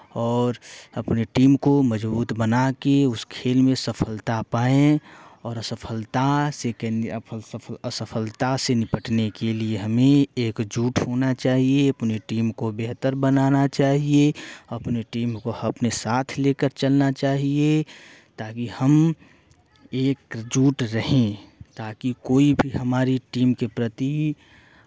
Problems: constant background noise